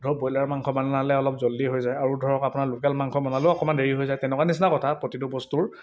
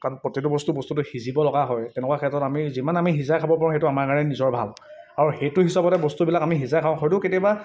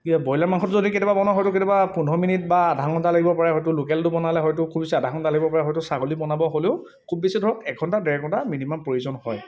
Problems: none marked